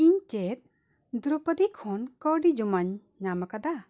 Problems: none marked